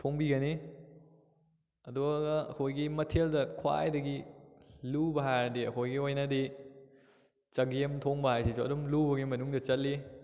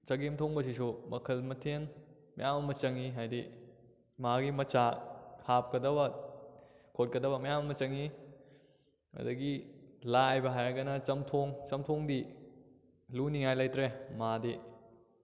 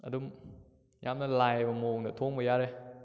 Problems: none marked